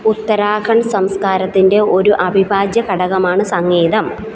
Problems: background sounds at intervals